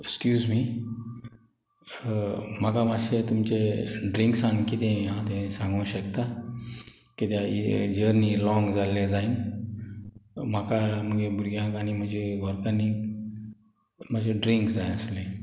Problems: none marked